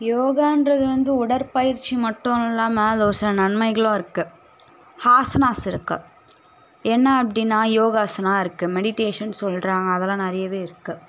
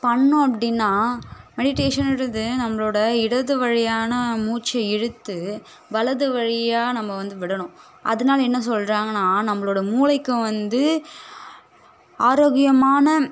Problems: none marked